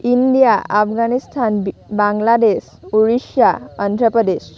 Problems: constant background noise, background conversations at intervals